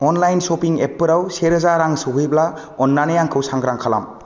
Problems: constant background noise